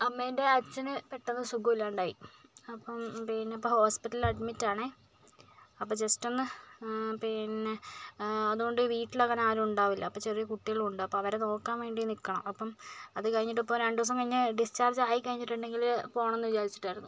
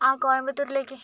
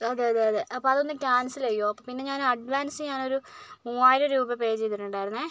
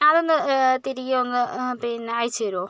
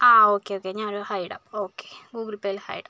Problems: low volume